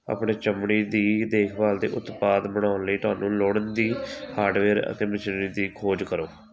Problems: constant background noise